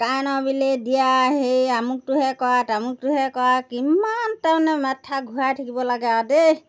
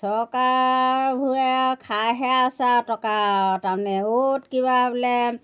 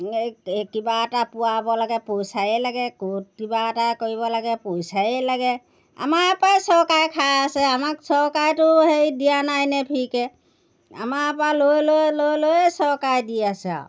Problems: background sounds at intervals